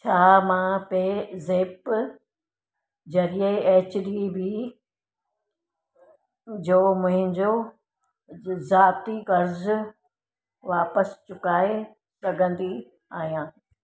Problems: none marked